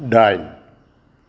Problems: background sounds at intervals